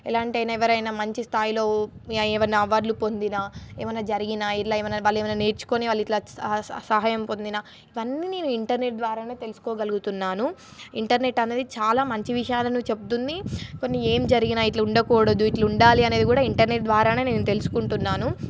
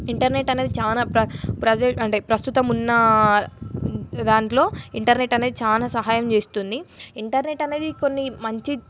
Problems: none marked